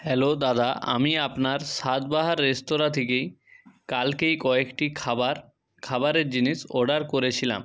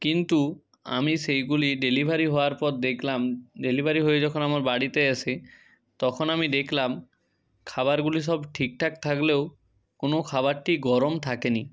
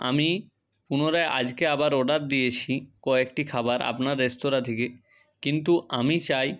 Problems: constant background noise